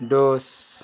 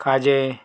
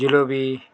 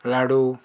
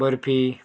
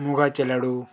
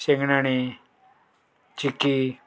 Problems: background sounds at intervals